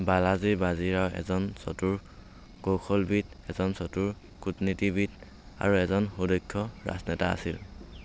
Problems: constant background noise